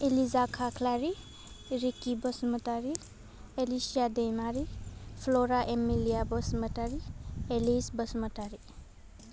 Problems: none marked